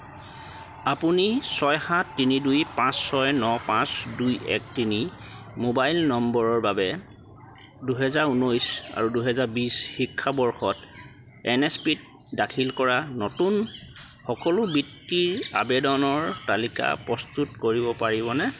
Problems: none marked